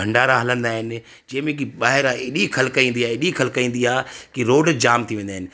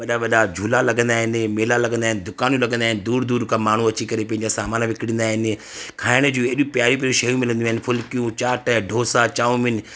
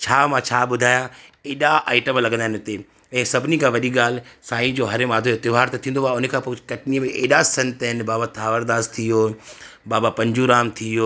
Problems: constant background noise